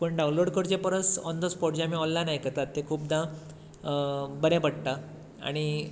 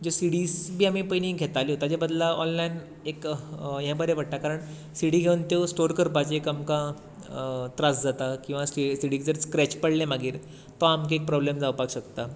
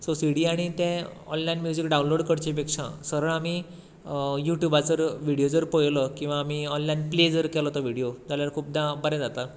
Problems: background sounds at intervals